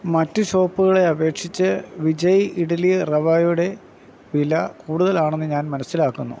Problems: background sounds at intervals